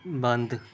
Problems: background conversations at intervals